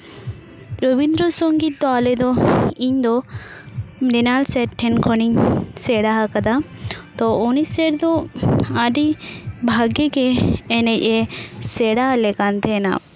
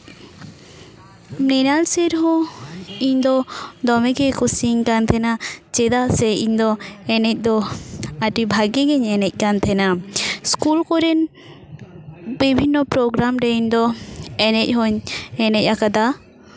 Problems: constant background noise